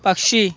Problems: constant background noise, continuous background conversations